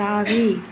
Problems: constant background noise, background conversations at intervals